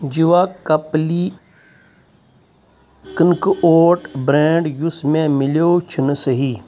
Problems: none marked